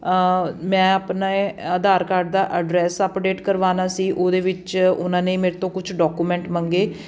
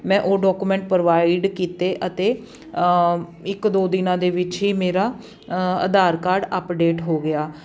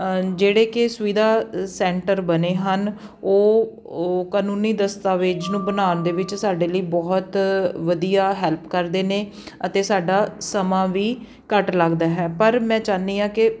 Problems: background sounds at intervals